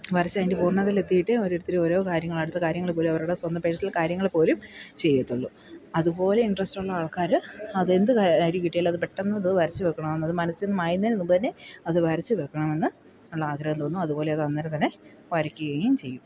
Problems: background sounds at intervals